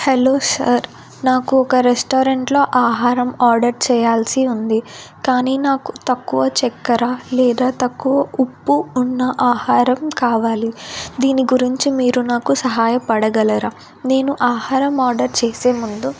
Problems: none marked